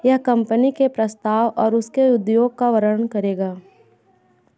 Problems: background sounds at intervals, continuous background conversations